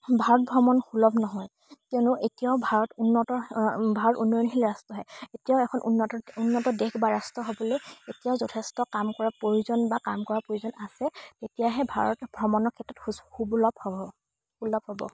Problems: background sounds at intervals